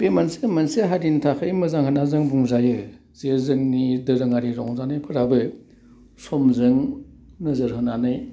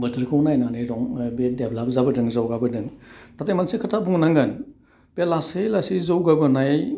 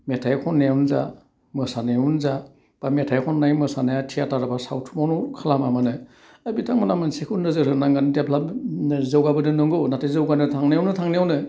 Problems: none marked